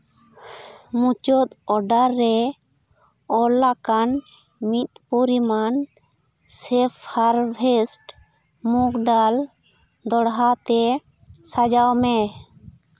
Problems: none marked